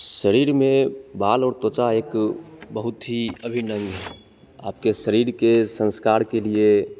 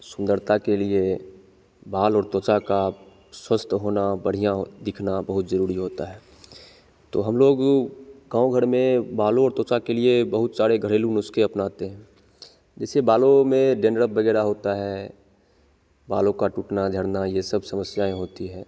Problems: constant background noise